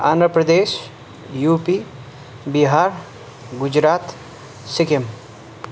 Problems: none marked